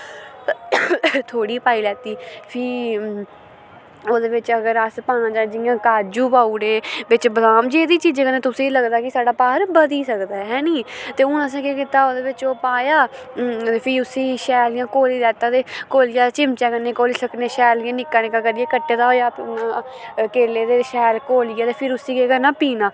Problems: constant background noise